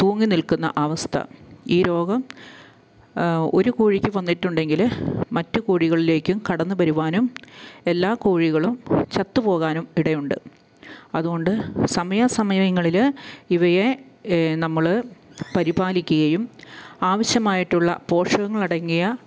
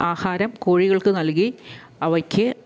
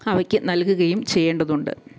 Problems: low volume